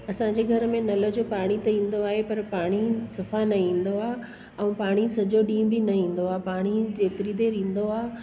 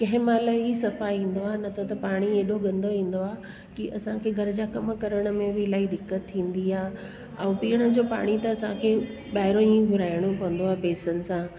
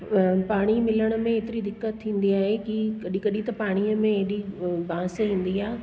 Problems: constant background noise